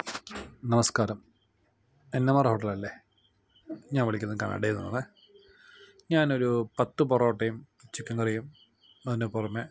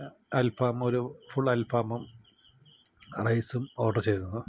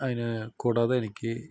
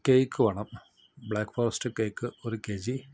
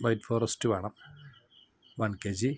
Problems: background sounds at intervals, low volume